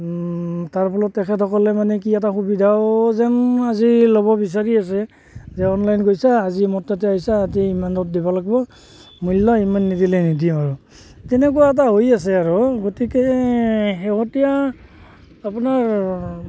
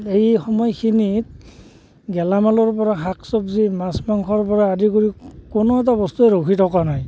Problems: constant background noise, background conversations at intervals